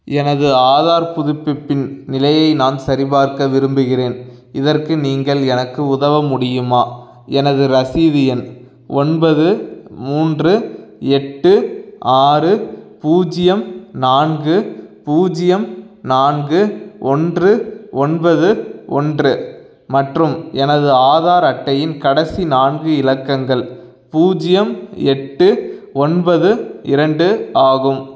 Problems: none marked